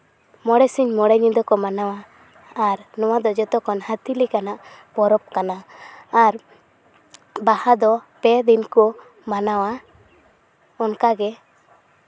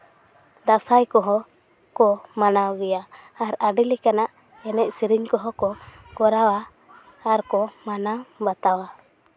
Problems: constant background noise